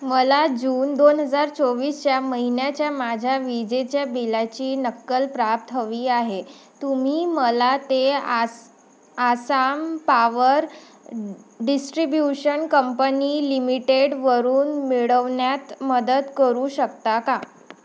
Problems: none marked